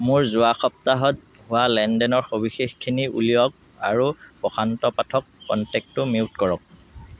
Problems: none marked